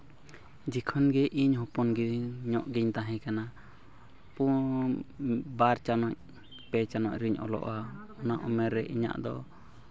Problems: continuous background conversations